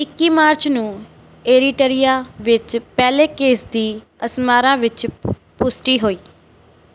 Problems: background sounds at intervals